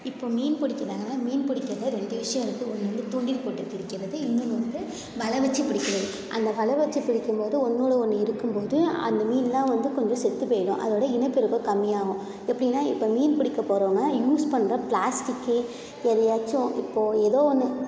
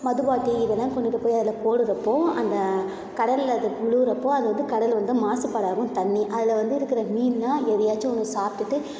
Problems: none marked